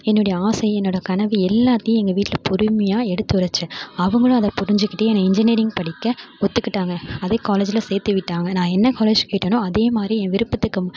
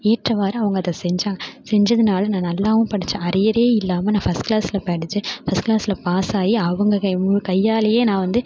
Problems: none marked